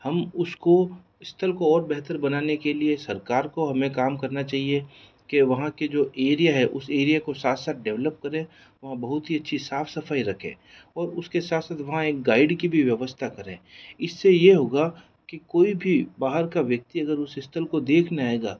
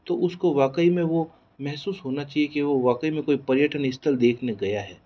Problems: none marked